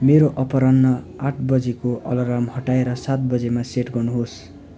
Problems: background sounds at intervals